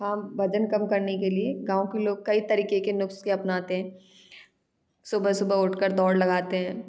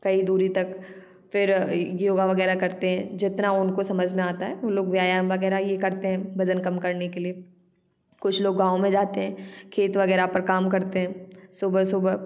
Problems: none marked